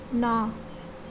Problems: none marked